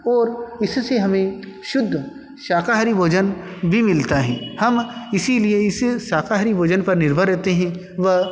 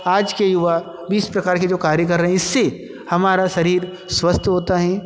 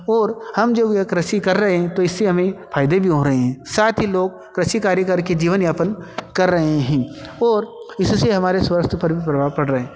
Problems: constant background noise, echo